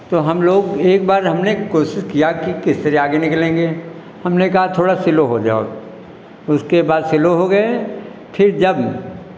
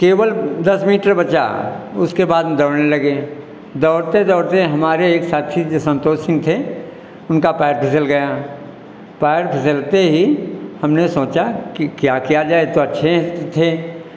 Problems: none marked